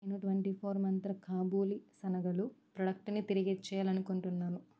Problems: low volume